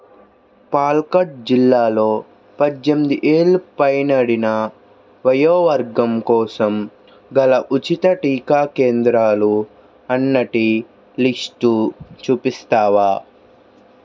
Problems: constant background noise